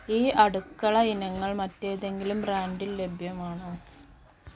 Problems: constant background noise, low volume